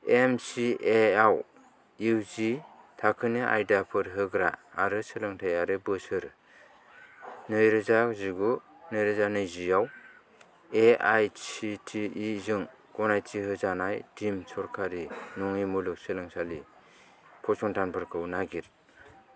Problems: none marked